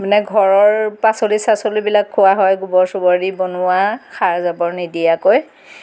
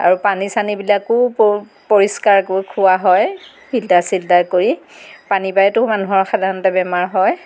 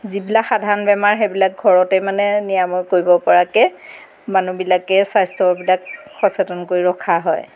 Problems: background sounds at intervals